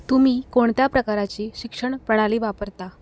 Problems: none marked